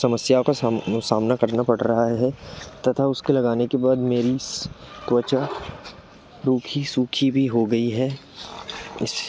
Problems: background sounds at intervals